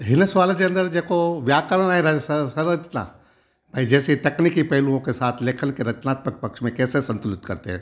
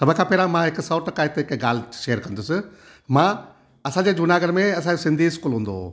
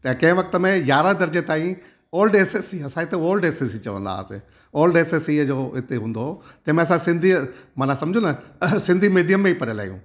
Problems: background sounds at intervals